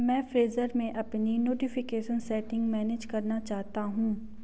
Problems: constant background noise